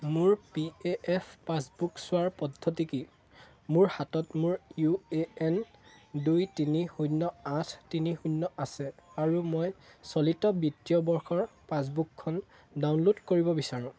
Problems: constant background noise, background conversations at intervals